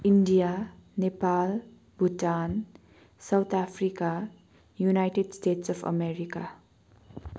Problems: none marked